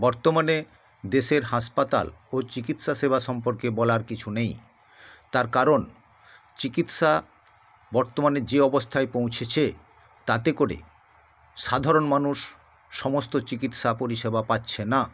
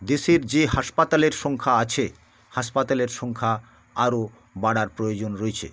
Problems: constant background noise